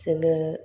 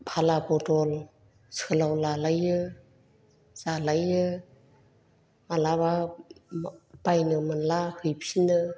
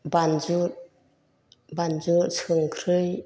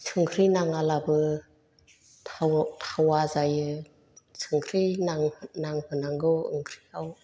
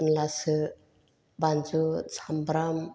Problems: low volume